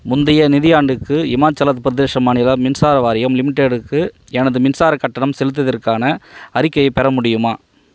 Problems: background sounds at intervals